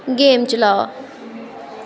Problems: constant background noise